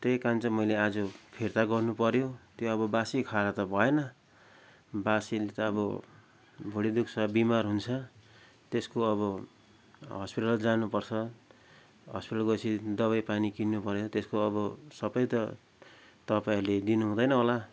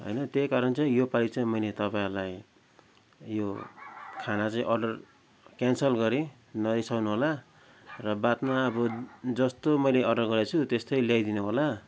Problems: none marked